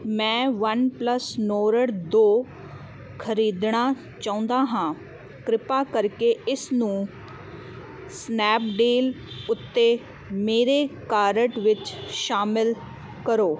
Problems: constant background noise